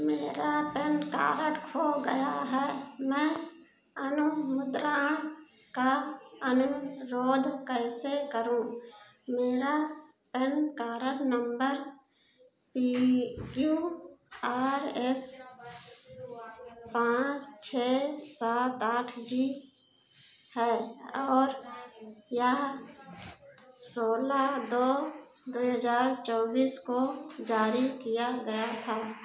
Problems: constant background noise, echo